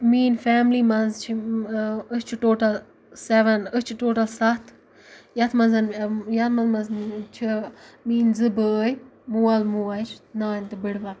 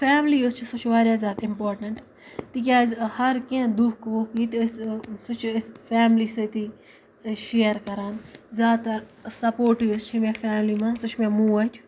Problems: background sounds at intervals